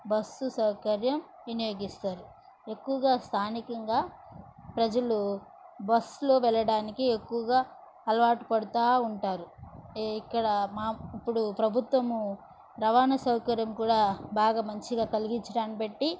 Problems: none marked